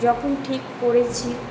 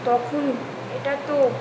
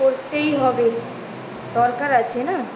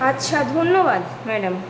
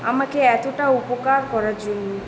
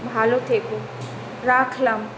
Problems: constant background noise